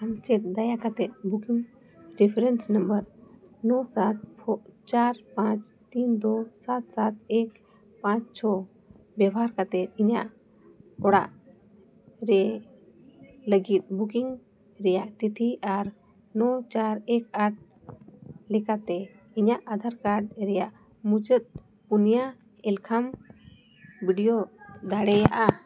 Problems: background conversations at intervals